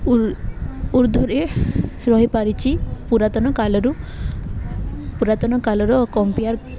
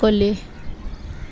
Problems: background sounds at intervals, background conversations at intervals